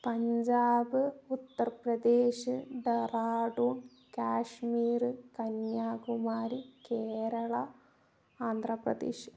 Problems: low volume